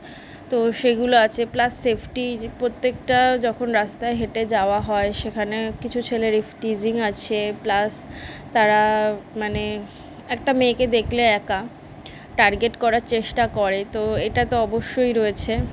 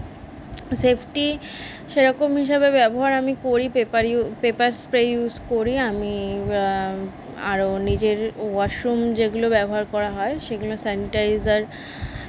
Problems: none marked